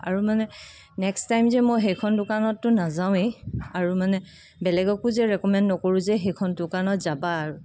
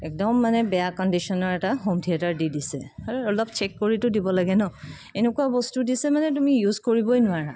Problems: background sounds at intervals